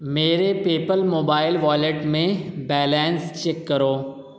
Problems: none marked